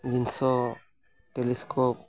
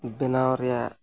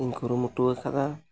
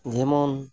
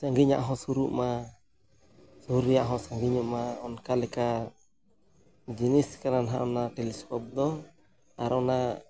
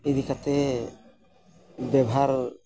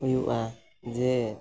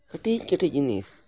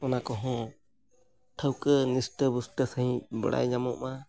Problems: background sounds at intervals